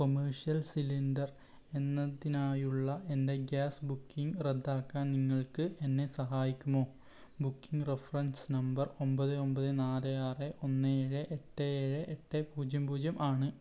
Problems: none marked